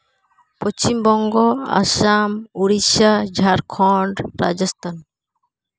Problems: background sounds at intervals